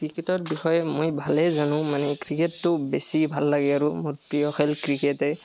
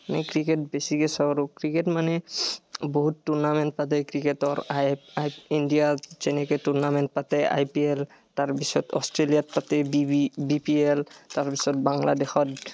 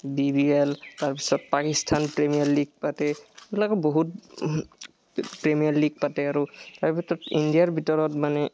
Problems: none marked